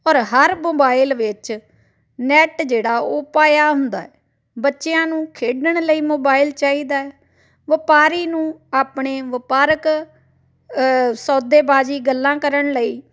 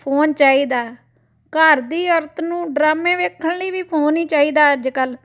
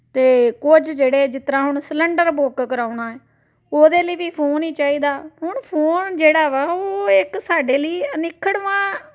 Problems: background sounds at intervals, background conversations at intervals